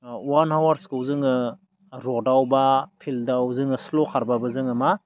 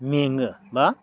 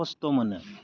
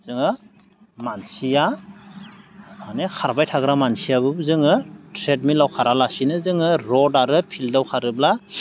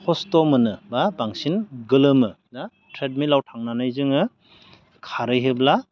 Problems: none marked